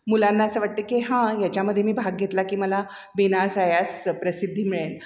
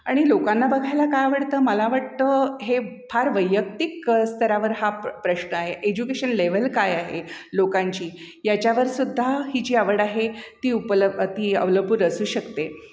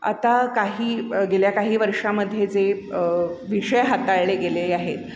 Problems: echo